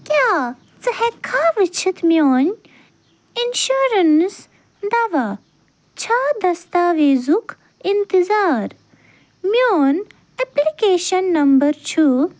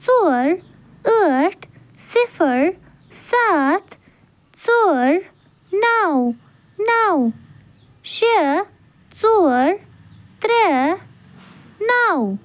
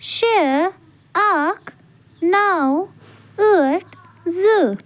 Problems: none marked